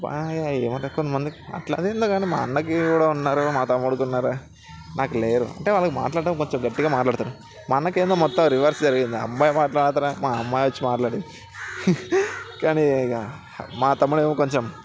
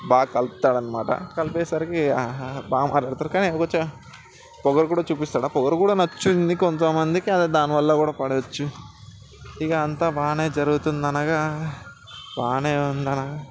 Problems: background sounds at intervals, background conversations at intervals